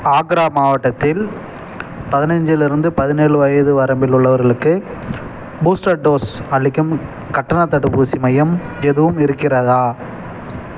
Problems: none marked